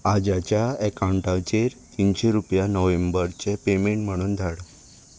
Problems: constant background noise